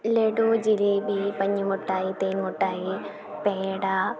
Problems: constant background noise, low volume